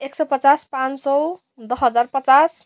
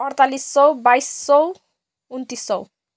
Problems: background sounds at intervals